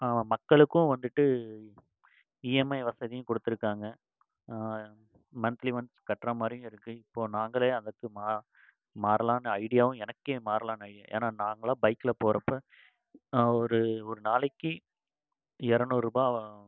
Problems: constant background noise